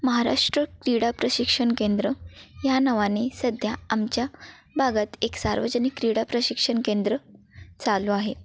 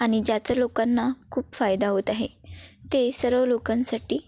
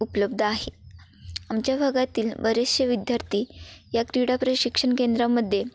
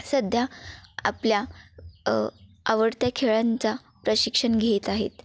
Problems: constant background noise, continuous background conversations